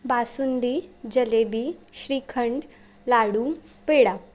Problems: constant background noise